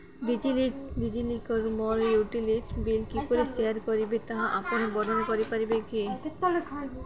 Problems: constant background noise, continuous background conversations